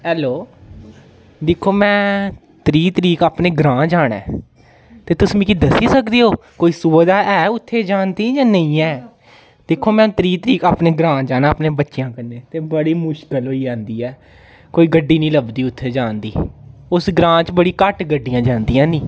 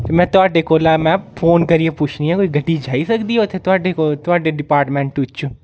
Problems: background conversations at intervals